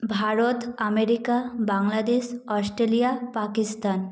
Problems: echo